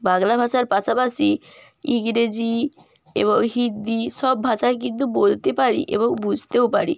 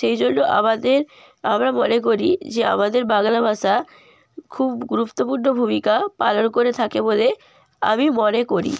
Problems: constant background noise